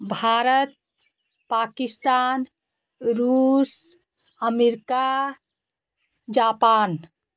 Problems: constant background noise